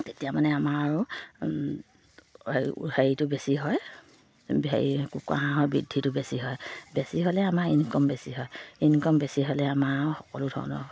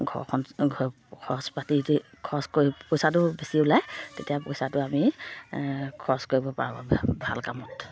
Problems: low volume